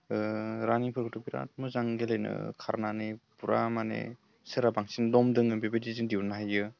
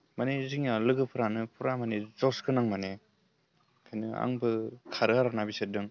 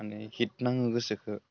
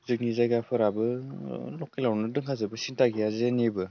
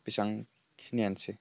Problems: low volume